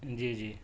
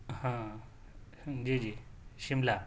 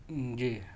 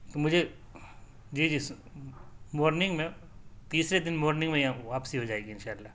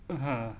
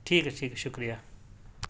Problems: background sounds at intervals